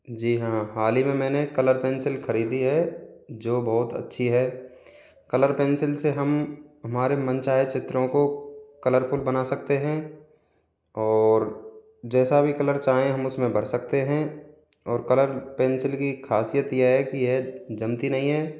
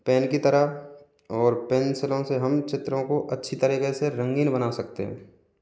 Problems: constant background noise